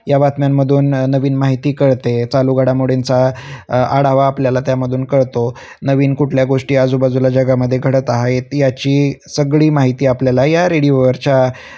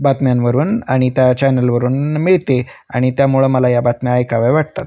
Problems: constant background noise, continuous background conversations